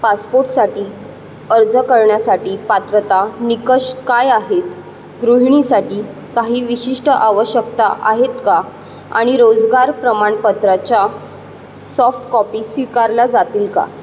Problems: constant background noise